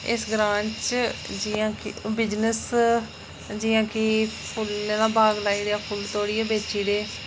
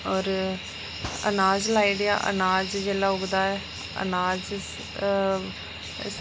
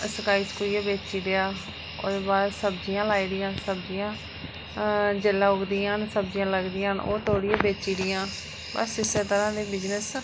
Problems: constant background noise